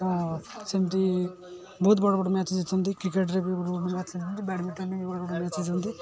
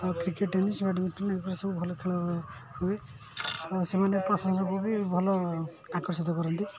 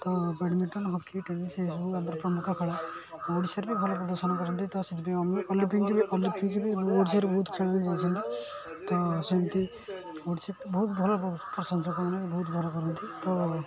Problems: constant background noise